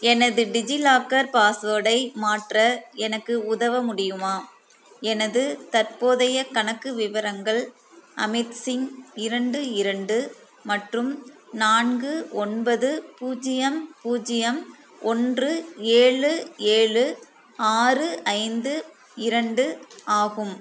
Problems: constant background noise